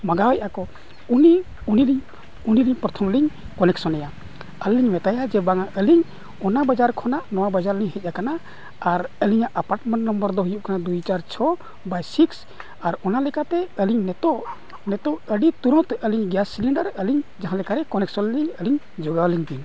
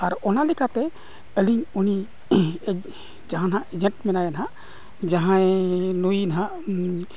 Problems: constant background noise, low volume